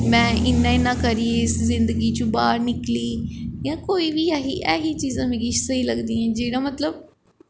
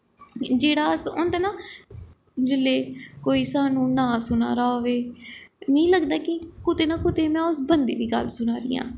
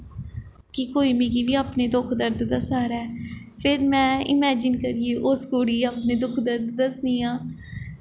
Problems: echo